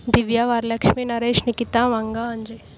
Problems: none marked